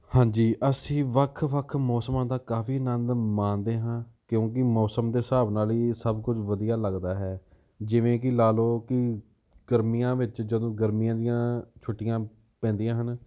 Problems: none marked